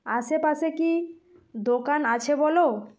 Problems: constant background noise